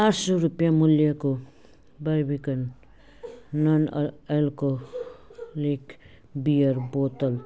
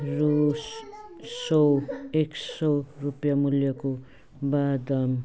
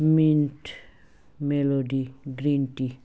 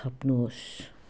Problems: constant background noise